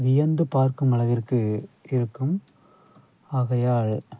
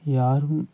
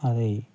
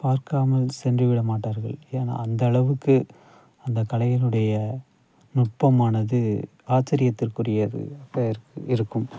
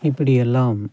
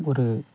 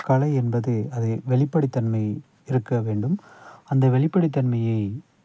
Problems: background sounds at intervals